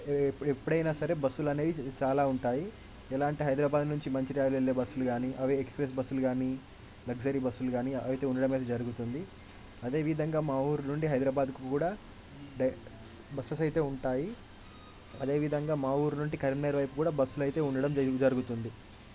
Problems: background sounds at intervals